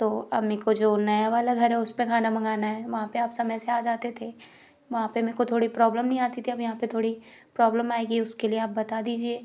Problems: background sounds at intervals